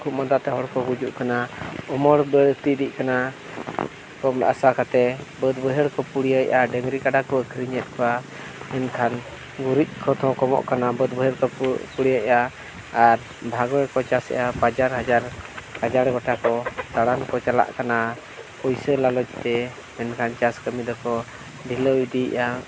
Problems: none marked